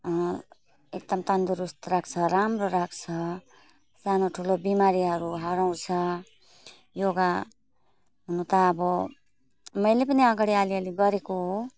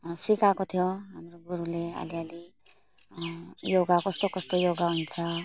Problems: none marked